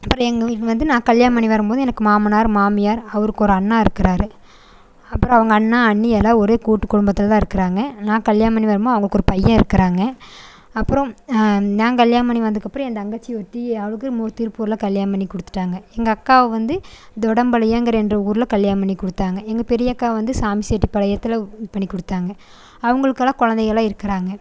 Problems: constant background noise